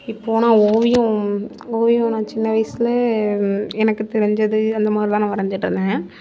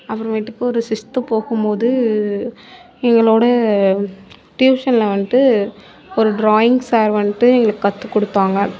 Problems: background conversations at intervals